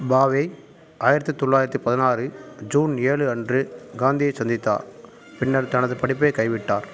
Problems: background sounds at intervals